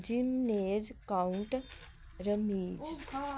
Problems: background sounds at intervals